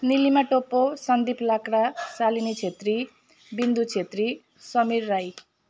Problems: none marked